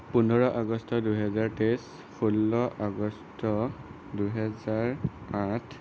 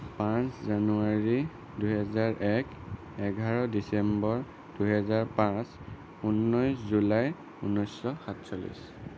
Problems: constant background noise